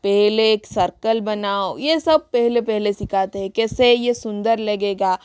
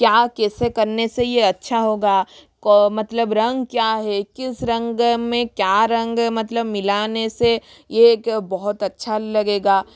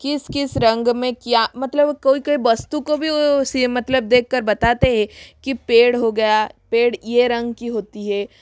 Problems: background sounds at intervals, echo